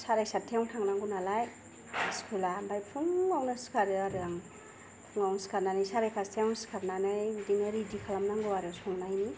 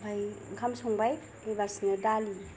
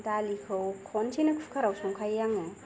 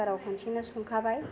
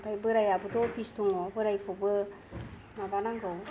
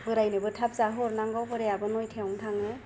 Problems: none marked